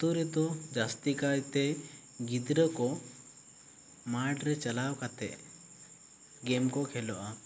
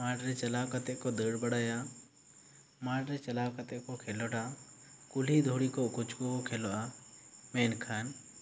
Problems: none marked